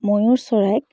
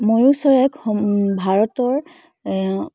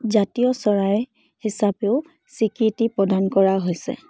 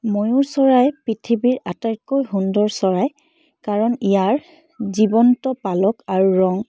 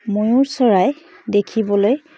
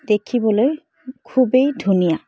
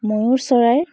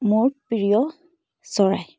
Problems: background sounds at intervals